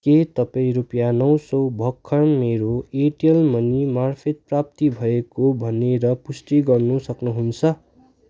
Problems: continuous background conversations